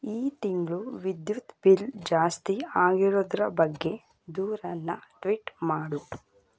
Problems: none marked